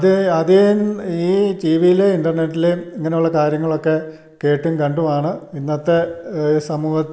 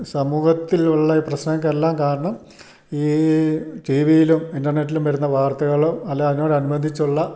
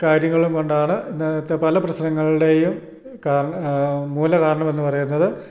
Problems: none marked